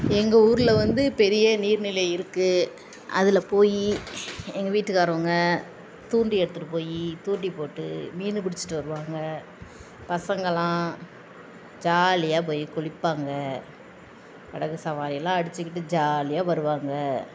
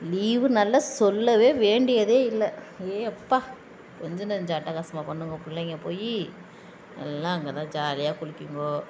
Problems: constant background noise